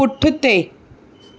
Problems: none marked